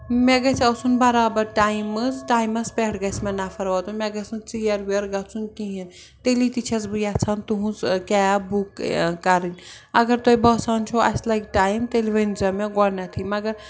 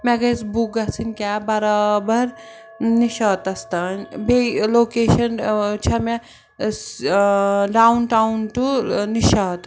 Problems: background sounds at intervals, background conversations at intervals